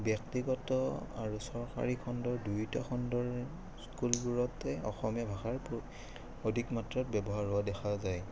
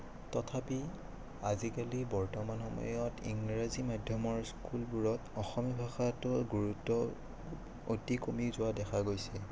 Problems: background sounds at intervals